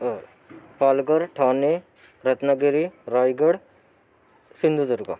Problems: background sounds at intervals, continuous background conversations